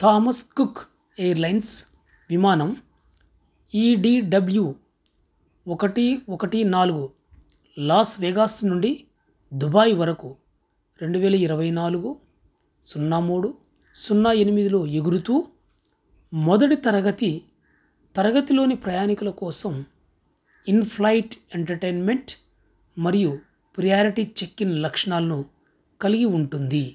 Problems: background sounds at intervals